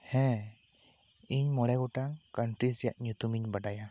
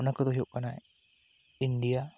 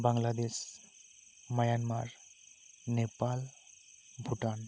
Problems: none marked